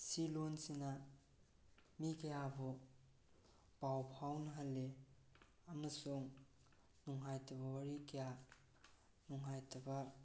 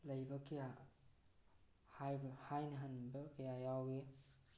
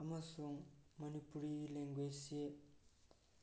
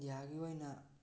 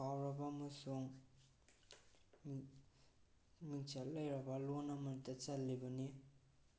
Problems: low volume